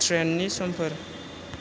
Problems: constant background noise